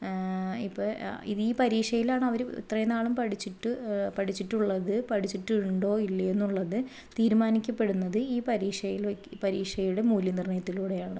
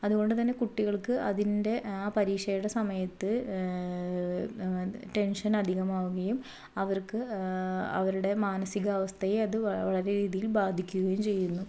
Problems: low volume